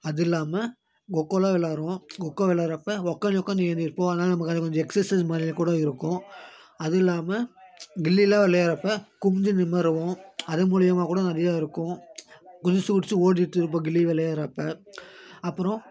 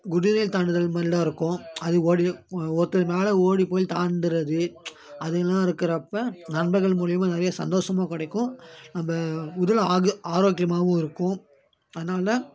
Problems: constant background noise